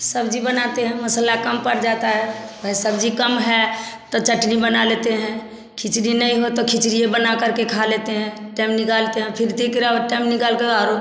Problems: constant background noise, continuous background conversations